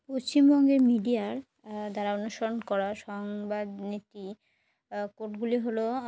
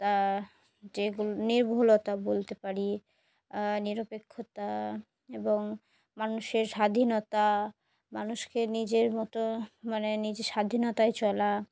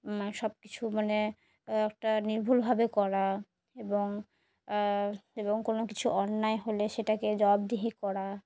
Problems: background sounds at intervals